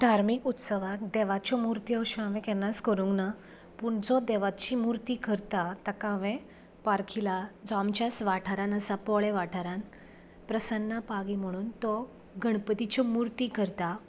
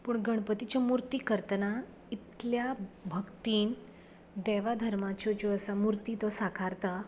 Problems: none marked